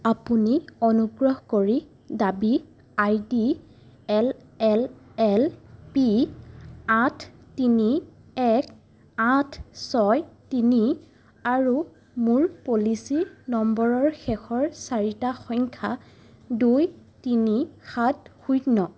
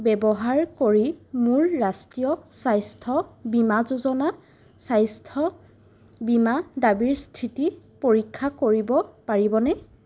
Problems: none marked